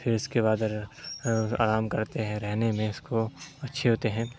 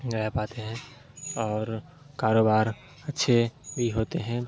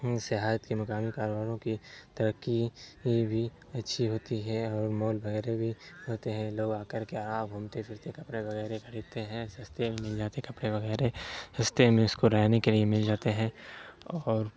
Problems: constant background noise